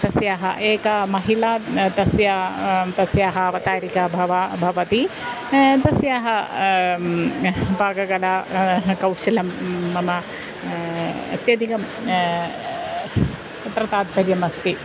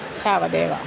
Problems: constant background noise